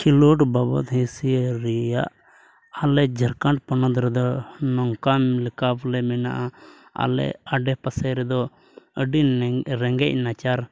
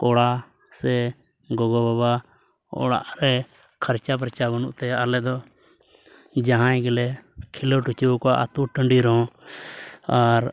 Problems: background sounds at intervals, low volume